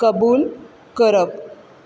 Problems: constant background noise